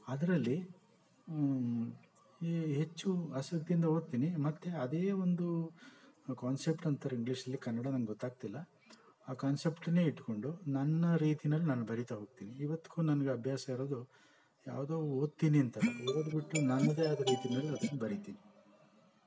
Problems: background sounds at intervals